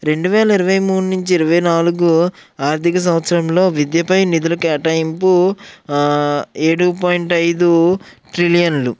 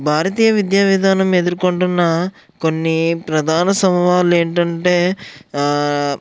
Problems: none marked